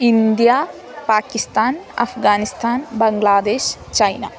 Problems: constant background noise